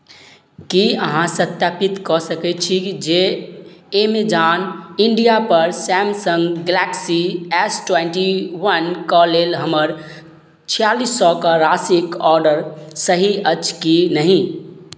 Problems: none marked